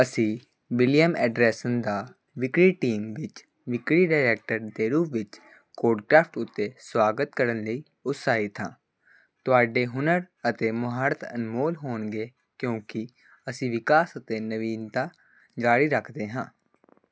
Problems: constant background noise